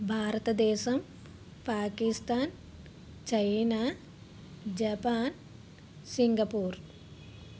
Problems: constant background noise